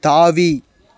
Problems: none marked